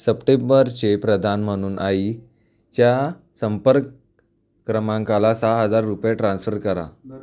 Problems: background conversations at intervals